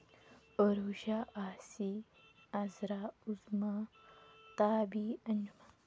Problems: constant background noise, low volume